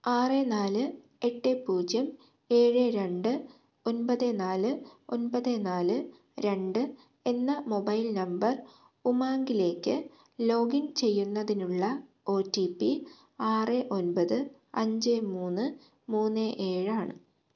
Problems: low volume